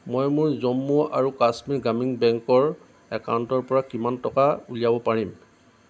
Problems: constant background noise